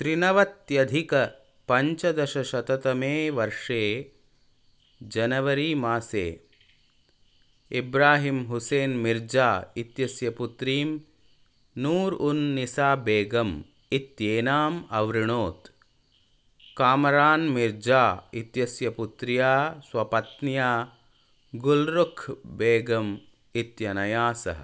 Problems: none marked